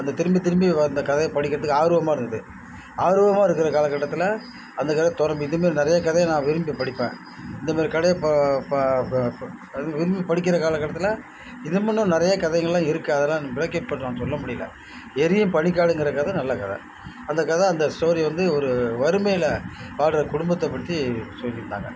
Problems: background sounds at intervals